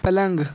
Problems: constant background noise